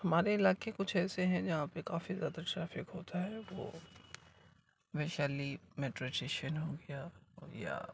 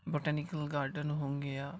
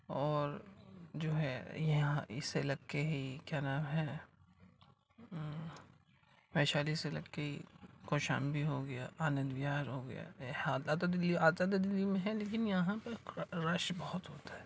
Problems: constant background noise, low volume